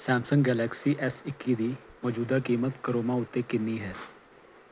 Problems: background sounds at intervals